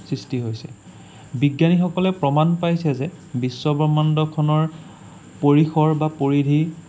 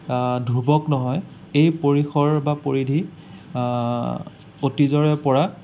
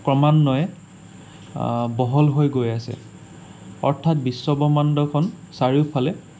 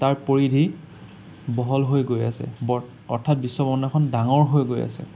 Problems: none marked